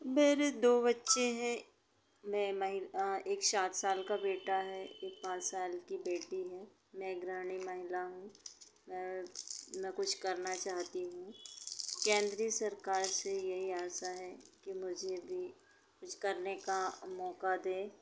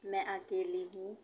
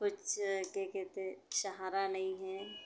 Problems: background sounds at intervals